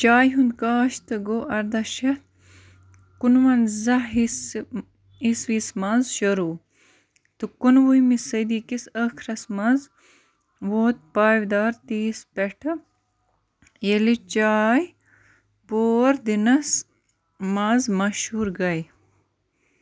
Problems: constant background noise